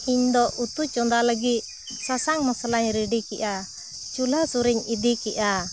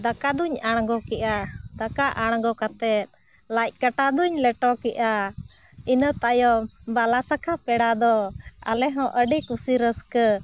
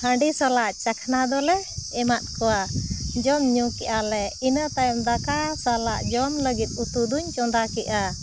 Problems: constant background noise